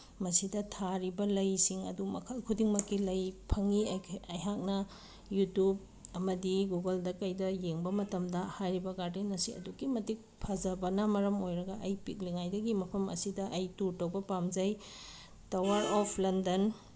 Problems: none marked